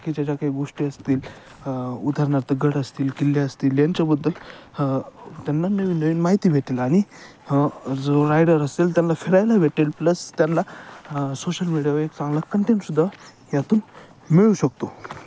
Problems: none marked